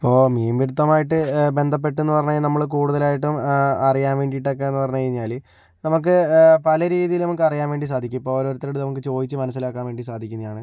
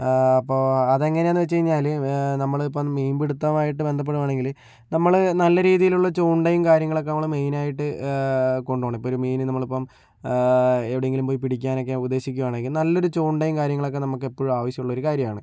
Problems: low volume